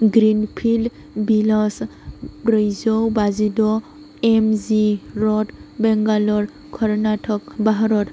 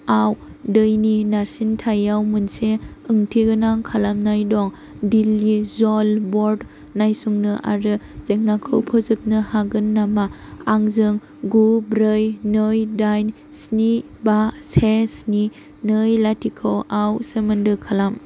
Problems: constant background noise